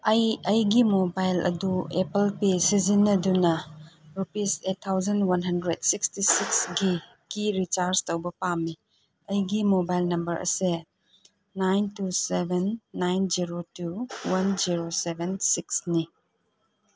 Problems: none marked